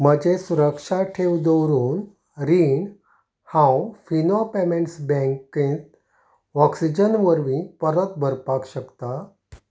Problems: none marked